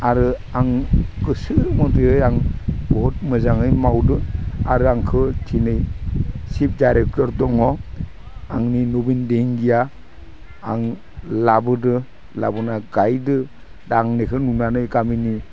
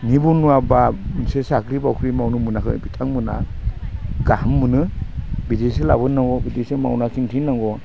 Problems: none marked